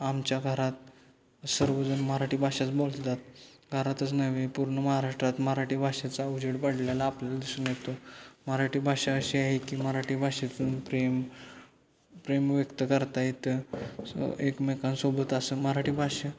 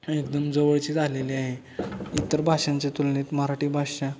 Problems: constant background noise, background conversations at intervals